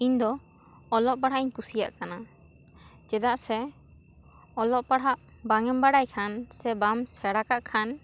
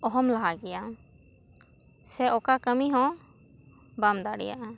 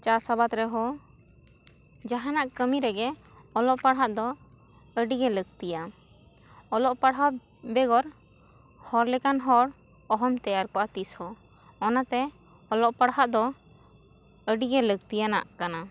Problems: constant background noise